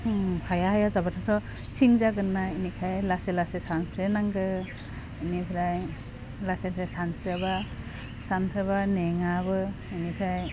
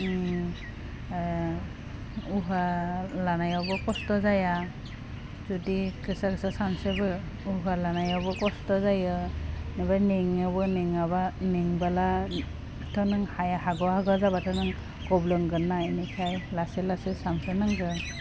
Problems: constant background noise